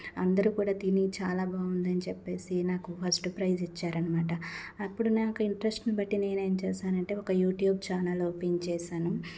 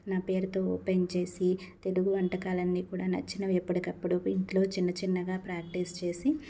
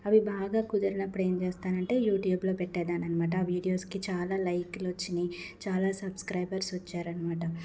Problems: none marked